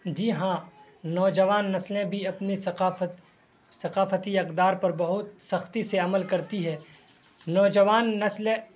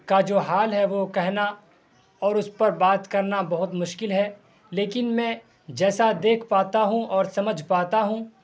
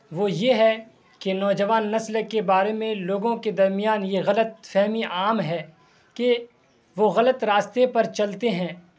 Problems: constant background noise